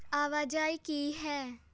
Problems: none marked